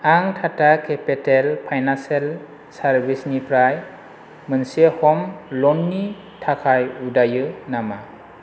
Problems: constant background noise